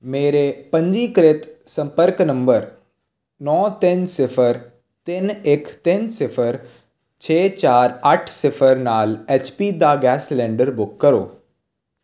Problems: constant background noise